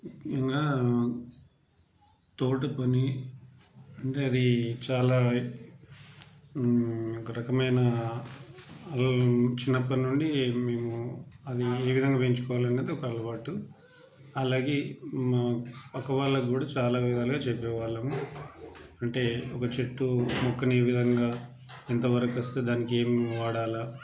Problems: background sounds at intervals, background conversations at intervals